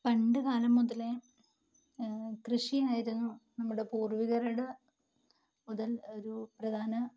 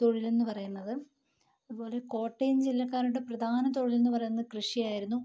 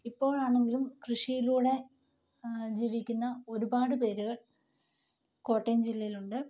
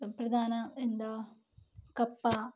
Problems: low volume